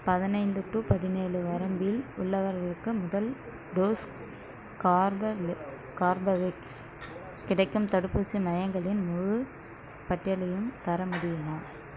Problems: background sounds at intervals